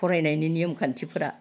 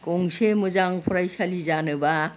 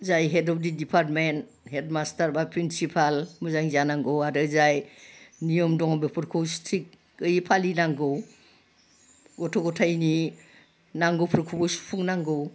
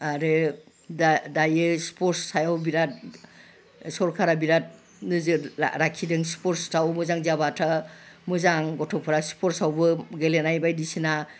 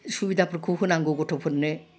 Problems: none marked